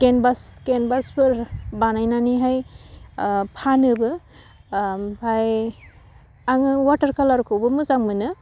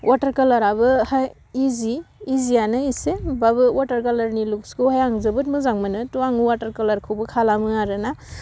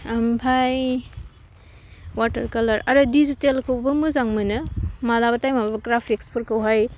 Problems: none marked